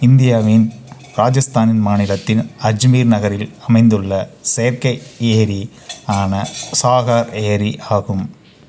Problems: constant background noise